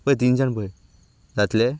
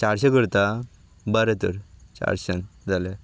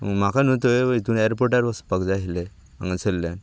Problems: none marked